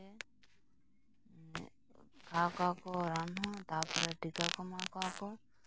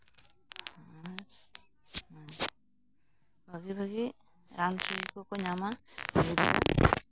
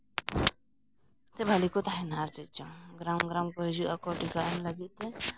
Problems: constant background noise, low volume